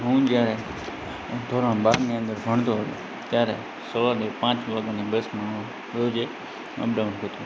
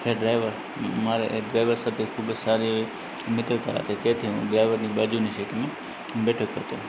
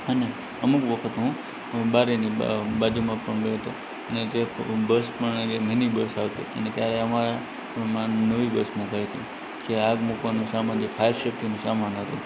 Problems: constant background noise